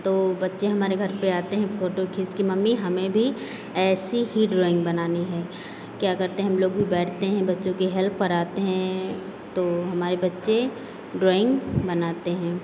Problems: constant background noise